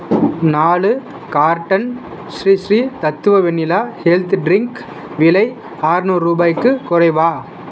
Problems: constant background noise